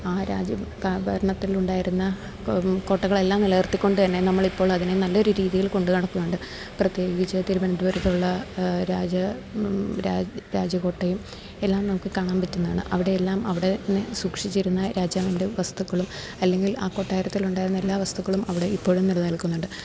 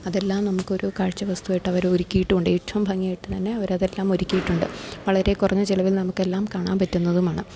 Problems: constant background noise, low volume